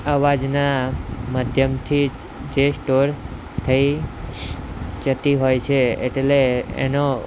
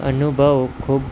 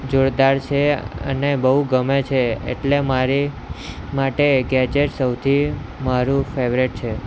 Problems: none marked